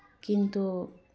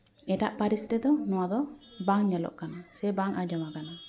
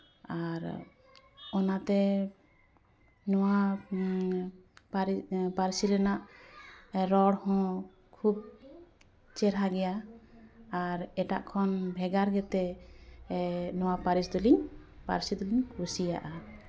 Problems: continuous background conversations